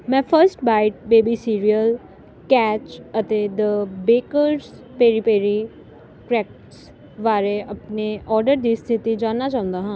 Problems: none marked